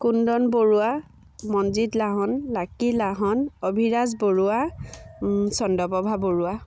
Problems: background sounds at intervals